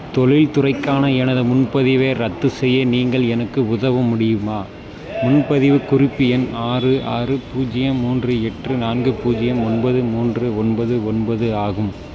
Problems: none marked